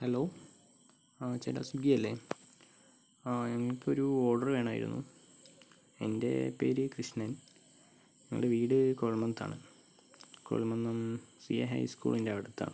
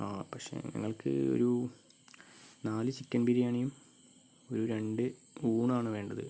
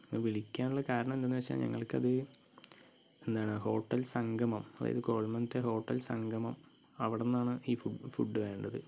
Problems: none marked